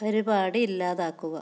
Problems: low volume